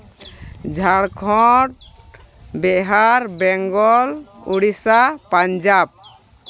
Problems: constant background noise, background conversations at intervals